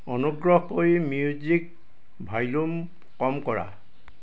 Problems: background sounds at intervals